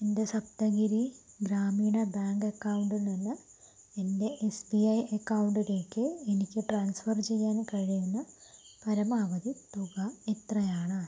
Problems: low volume